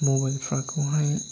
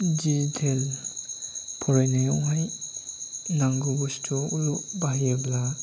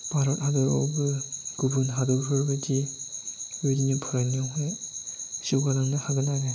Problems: constant background noise